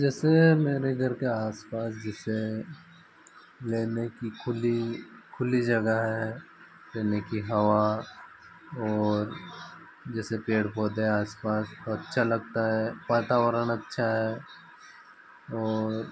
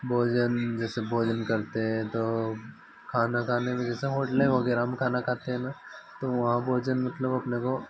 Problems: constant background noise